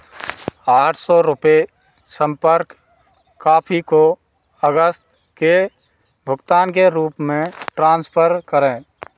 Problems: background sounds at intervals